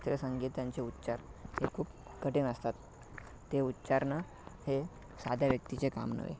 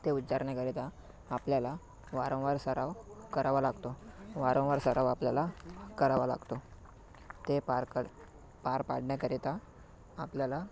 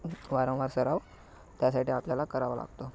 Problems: background sounds at intervals